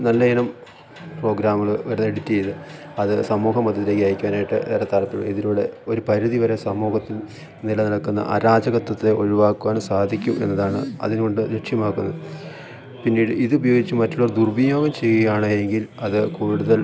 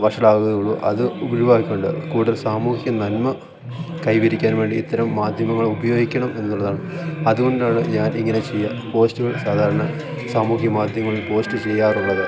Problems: constant background noise